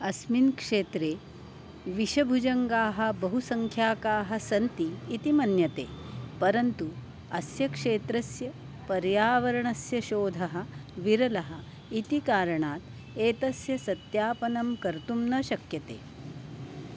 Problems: constant background noise